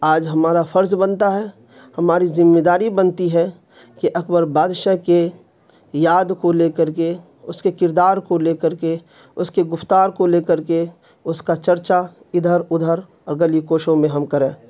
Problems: constant background noise